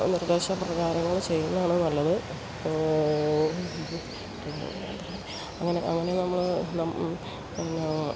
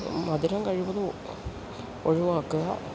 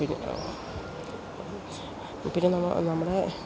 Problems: constant background noise